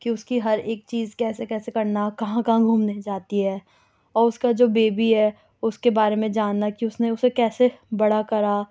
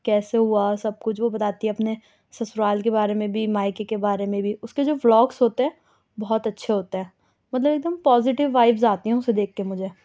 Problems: none marked